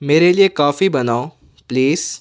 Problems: none marked